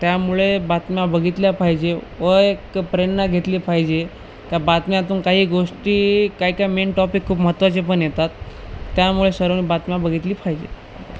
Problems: constant background noise